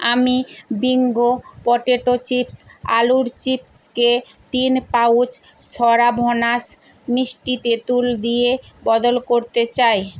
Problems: none marked